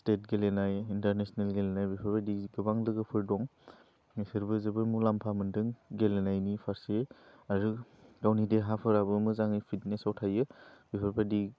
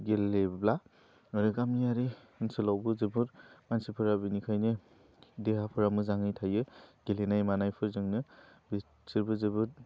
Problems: low volume